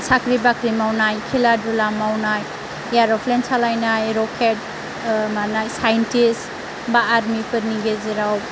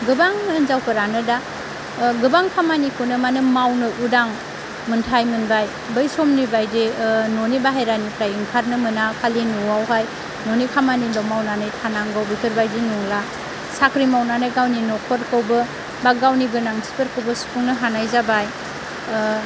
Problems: constant background noise